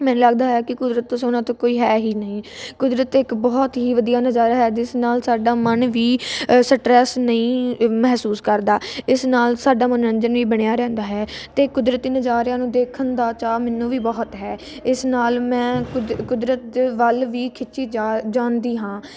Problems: none marked